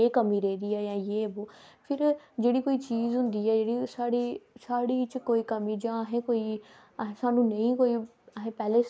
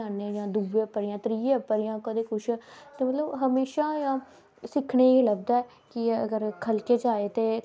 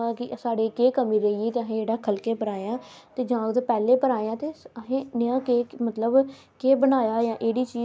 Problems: none marked